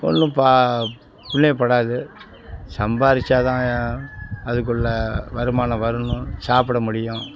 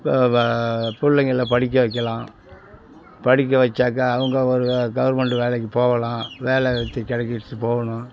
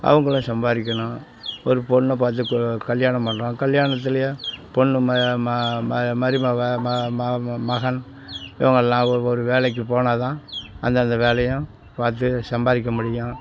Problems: constant background noise, background conversations at intervals